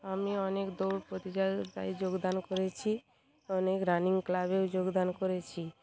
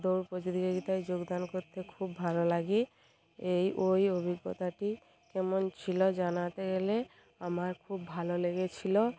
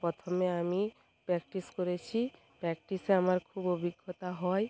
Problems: constant background noise, background conversations at intervals